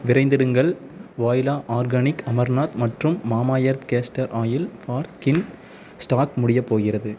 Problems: background sounds at intervals